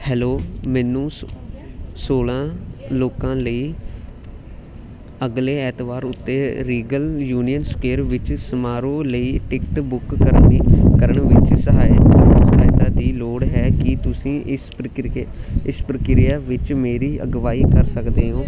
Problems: constant background noise